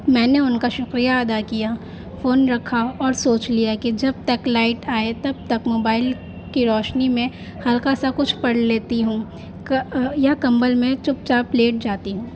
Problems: constant background noise